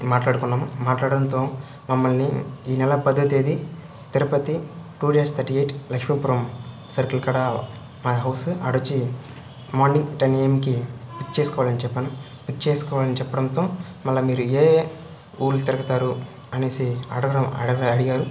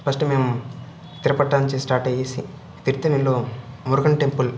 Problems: none marked